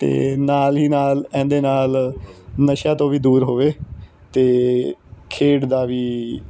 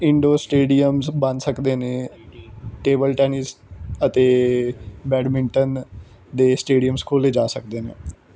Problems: constant background noise